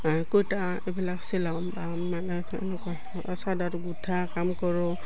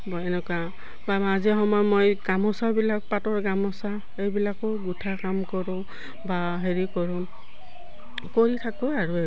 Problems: none marked